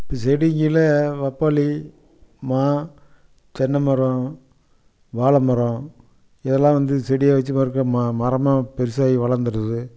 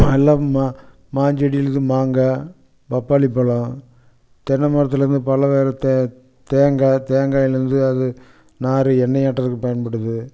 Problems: none marked